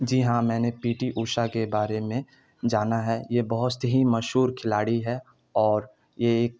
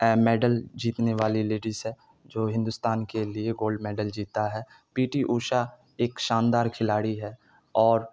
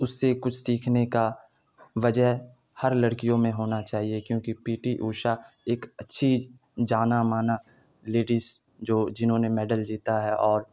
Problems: none marked